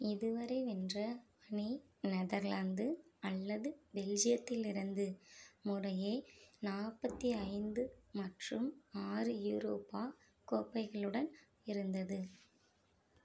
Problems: low volume